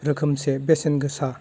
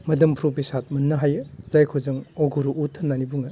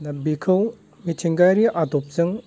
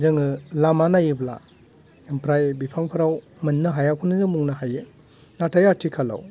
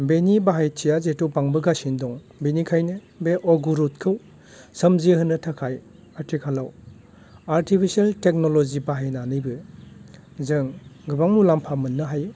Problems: none marked